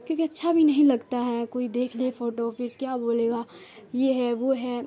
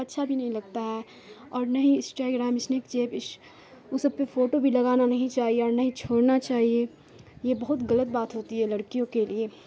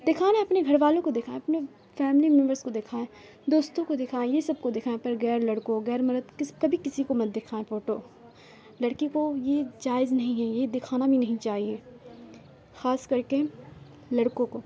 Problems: constant background noise